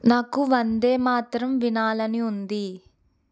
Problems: none marked